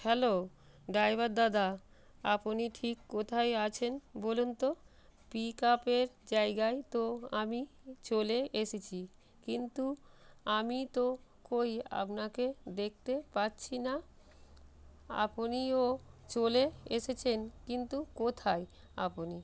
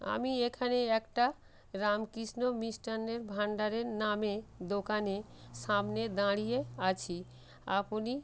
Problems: constant background noise